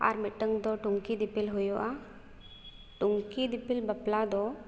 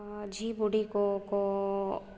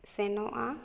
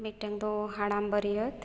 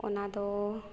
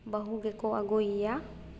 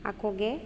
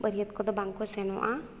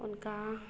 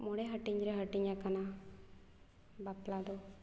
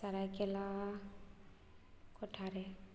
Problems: echo